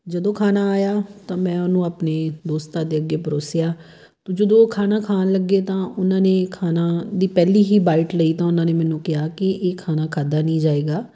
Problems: background sounds at intervals